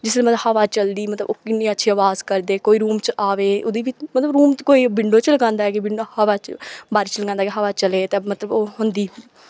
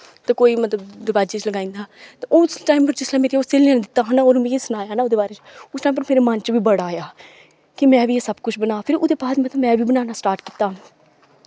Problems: none marked